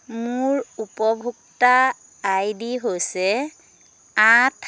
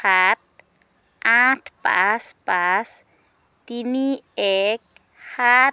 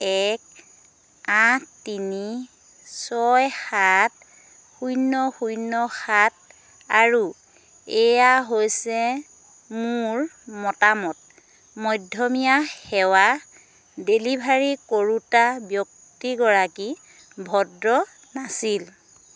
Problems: constant background noise